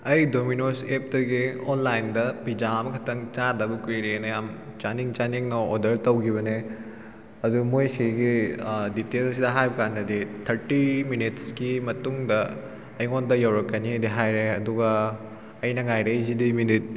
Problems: none marked